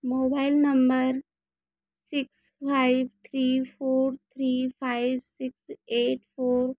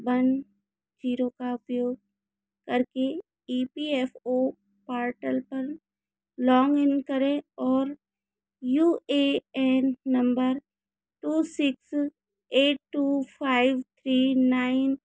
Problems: constant background noise